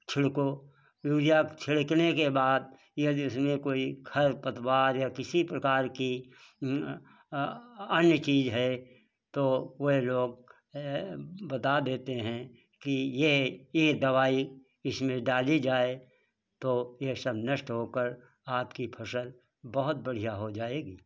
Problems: background sounds at intervals